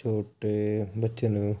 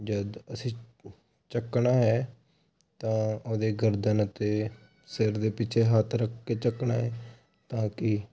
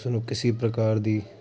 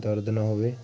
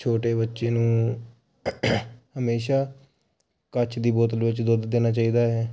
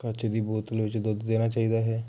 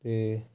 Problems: none marked